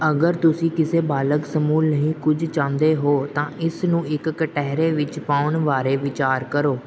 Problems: background sounds at intervals